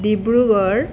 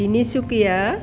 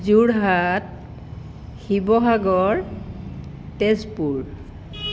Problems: none marked